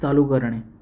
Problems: background sounds at intervals